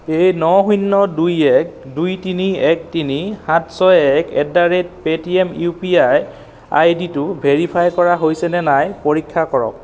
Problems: background sounds at intervals